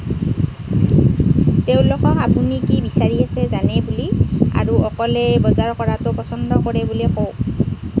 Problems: constant background noise